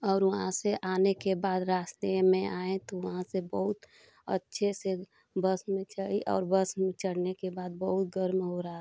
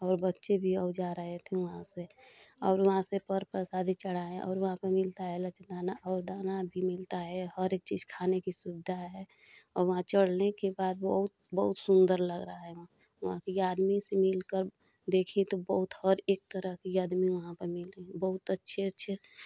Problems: constant background noise